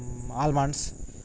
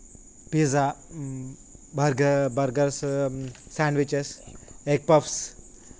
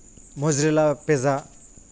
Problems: constant background noise